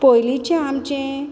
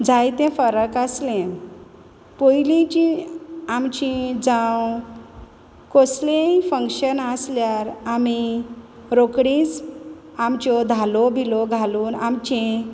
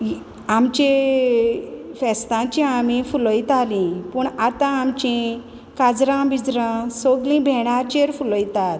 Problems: constant background noise